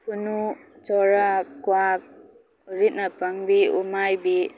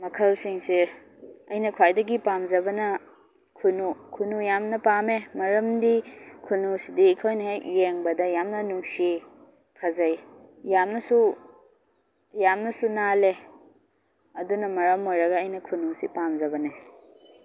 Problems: background sounds at intervals